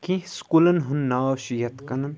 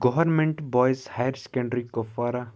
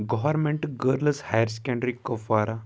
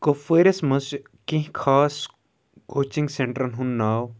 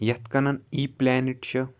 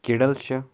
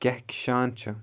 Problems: background sounds at intervals